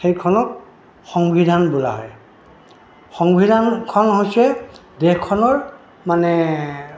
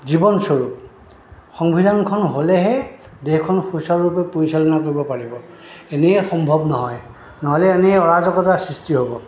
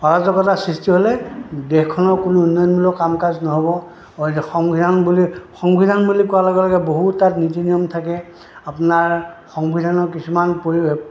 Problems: background sounds at intervals